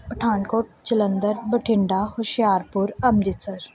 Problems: background sounds at intervals